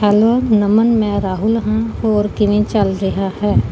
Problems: none marked